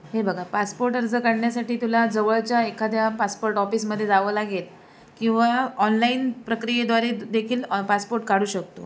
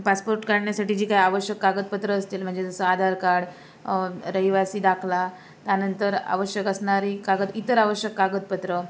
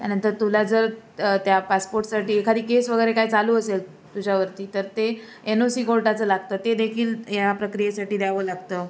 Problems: constant background noise